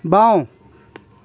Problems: background sounds at intervals